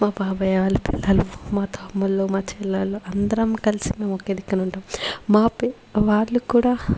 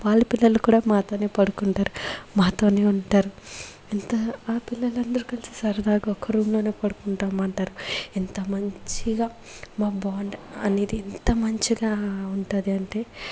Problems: background sounds at intervals